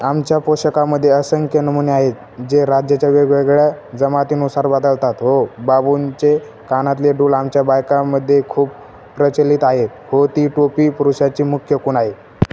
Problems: constant background noise